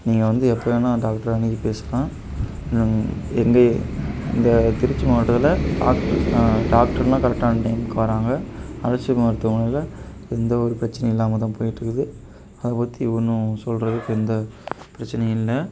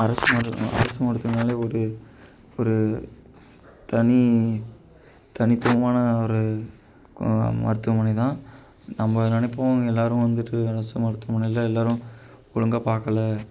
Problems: none marked